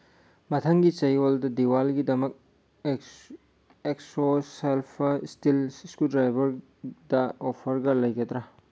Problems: none marked